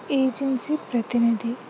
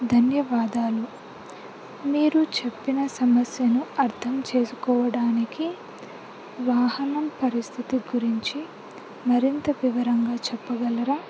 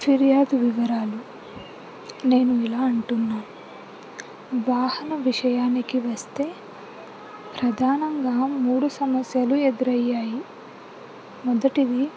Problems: low volume